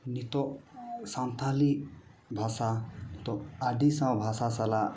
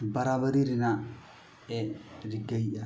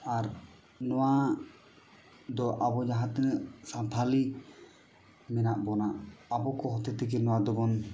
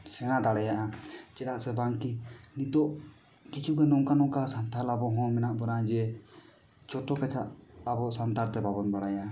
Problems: none marked